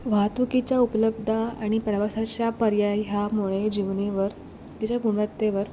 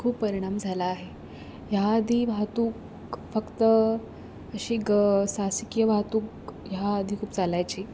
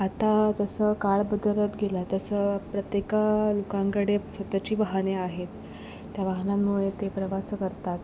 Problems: background sounds at intervals